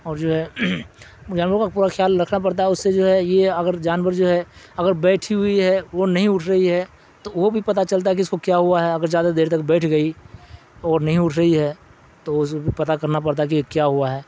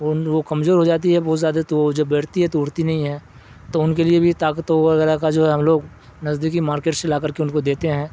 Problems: constant background noise